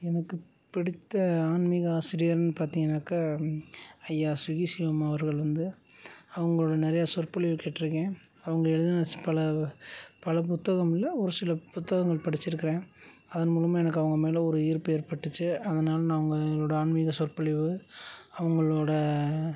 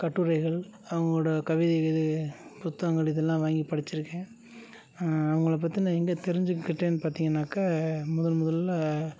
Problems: low volume